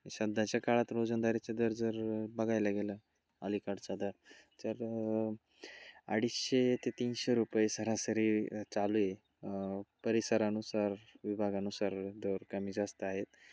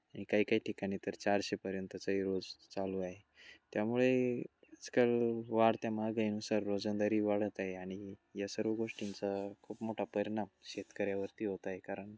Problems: constant background noise, low volume